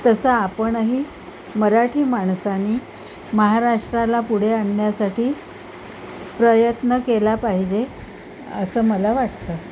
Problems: constant background noise